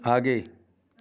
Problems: background conversations at intervals